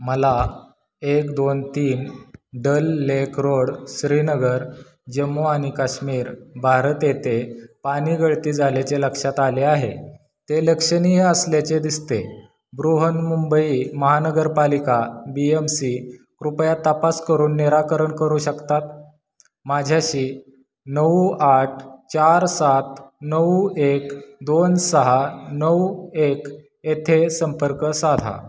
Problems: none marked